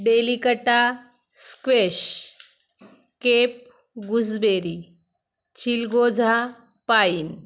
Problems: background sounds at intervals